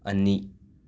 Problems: none marked